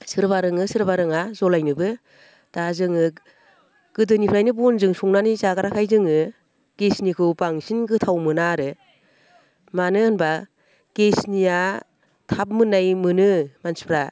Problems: none marked